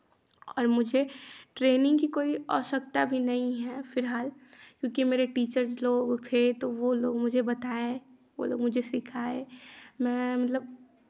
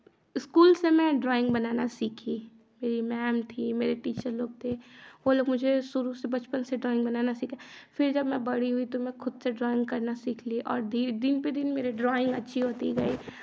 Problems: constant background noise